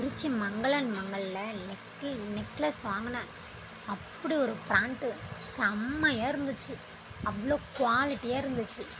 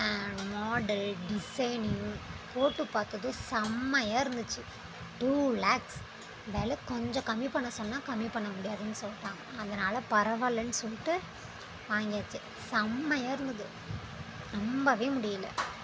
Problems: constant background noise